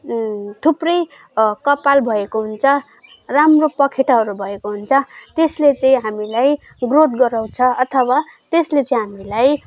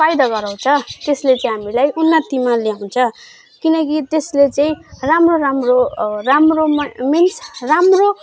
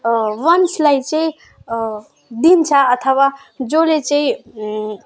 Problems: background sounds at intervals